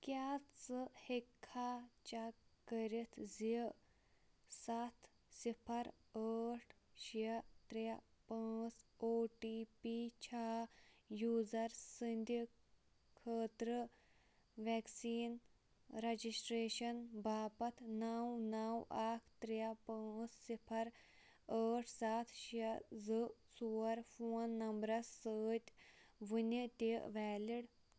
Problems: none marked